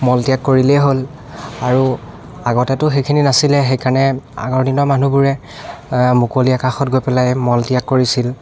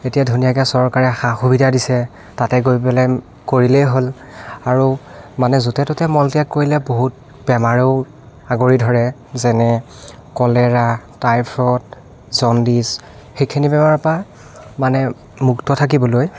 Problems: background sounds at intervals, continuous background conversations